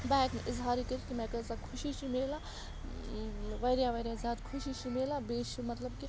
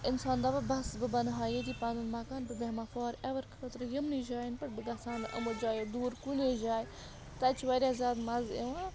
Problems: constant background noise